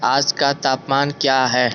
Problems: constant background noise